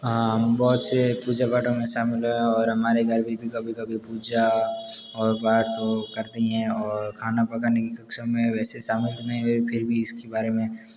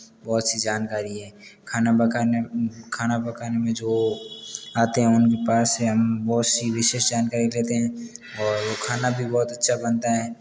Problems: background sounds at intervals